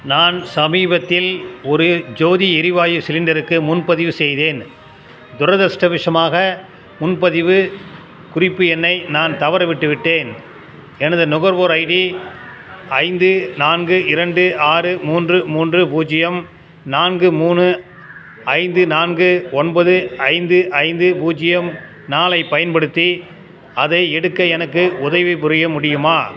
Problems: constant background noise